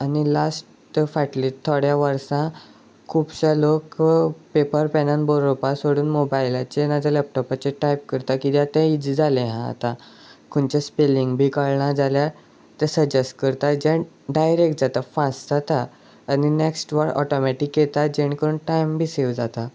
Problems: none marked